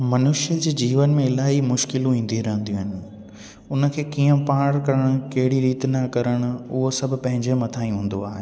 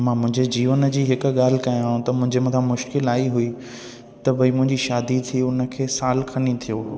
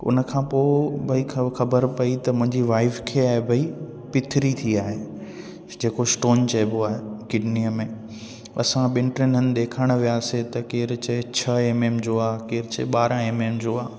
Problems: constant background noise, echo